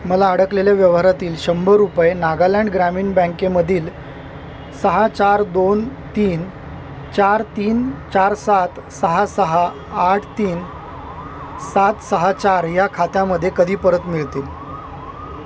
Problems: constant background noise